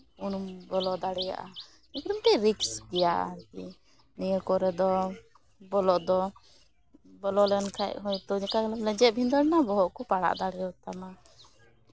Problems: background sounds at intervals